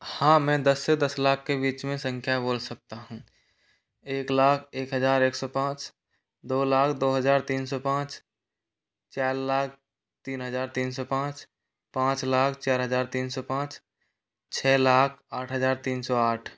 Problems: constant background noise